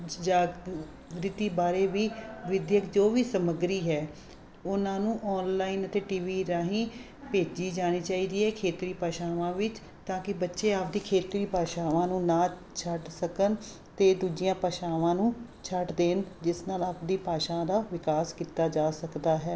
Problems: constant background noise